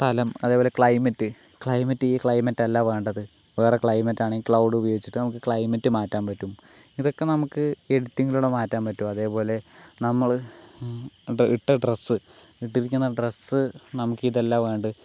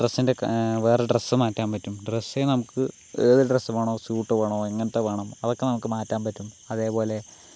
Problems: constant background noise